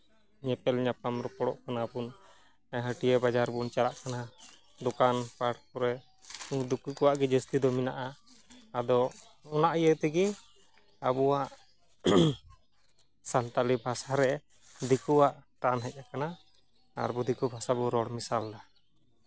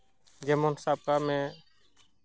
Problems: constant background noise